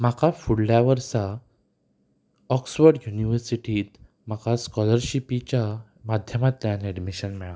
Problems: low volume